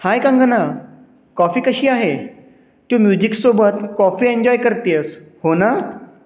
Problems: none marked